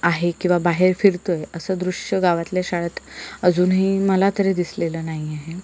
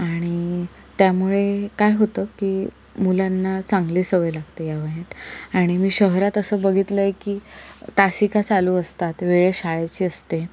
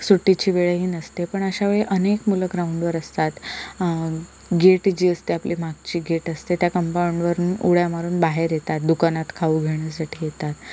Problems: none marked